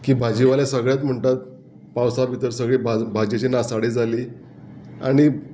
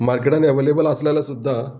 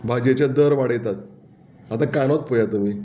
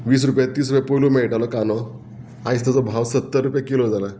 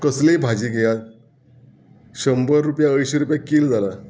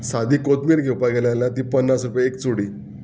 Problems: background conversations at intervals